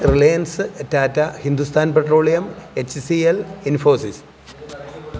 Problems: background sounds at intervals